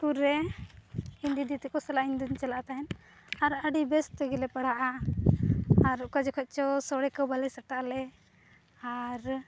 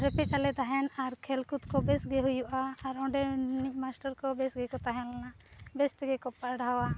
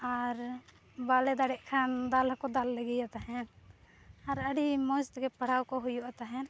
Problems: none marked